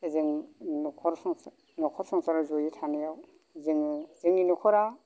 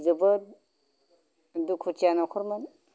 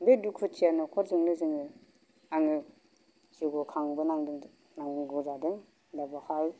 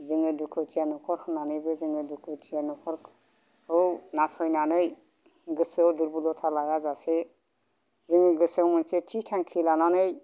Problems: low volume